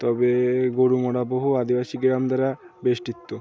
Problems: constant background noise